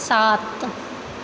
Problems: constant background noise